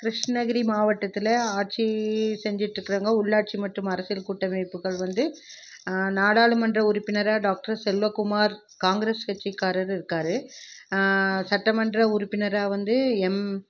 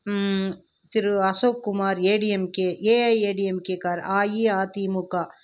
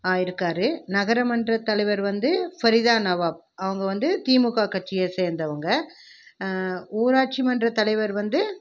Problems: background conversations at intervals